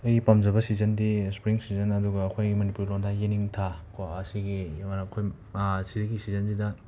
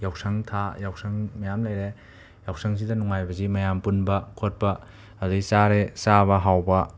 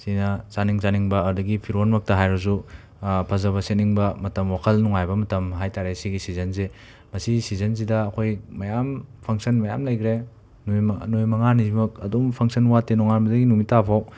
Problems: none marked